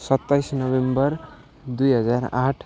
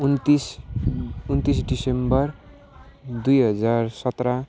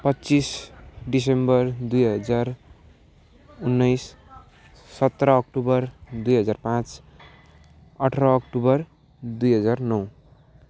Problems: none marked